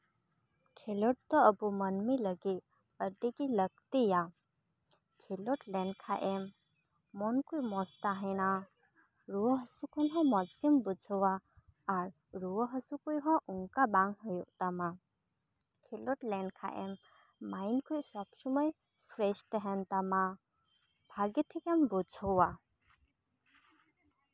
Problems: none marked